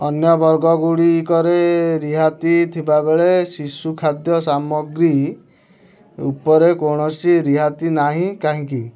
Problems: none marked